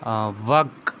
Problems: constant background noise